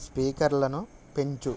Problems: none marked